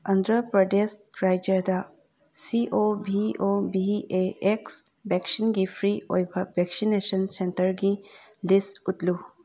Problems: none marked